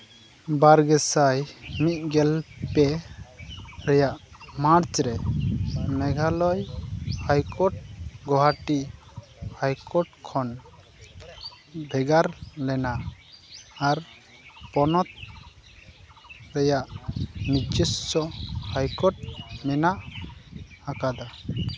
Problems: background sounds at intervals, background conversations at intervals